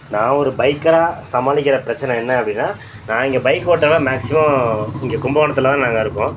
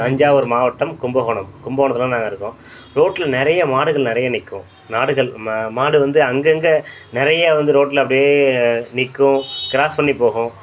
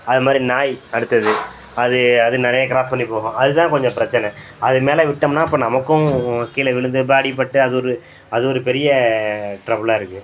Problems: background sounds at intervals